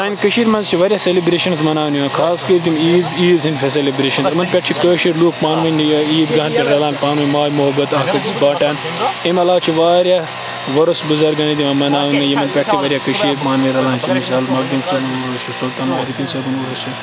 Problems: constant background noise, background conversations at intervals